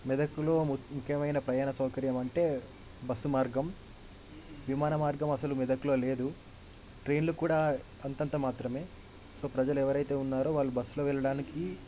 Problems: background sounds at intervals